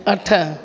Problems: constant background noise, echo